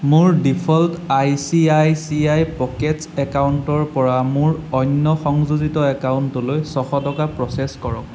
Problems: none marked